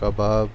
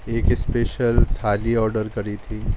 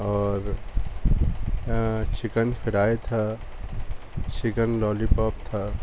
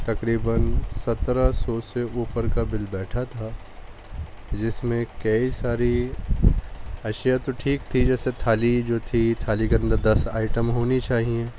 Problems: constant background noise, background conversations at intervals, low volume